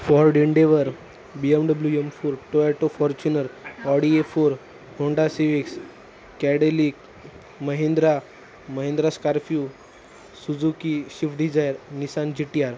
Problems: none marked